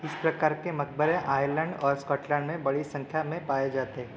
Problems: constant background noise